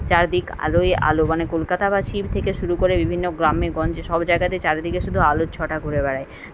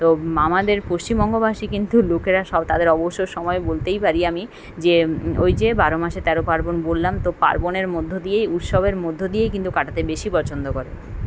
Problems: constant background noise